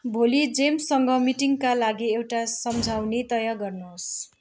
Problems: constant background noise